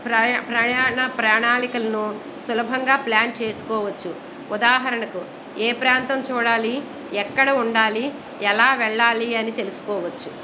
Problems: background conversations at intervals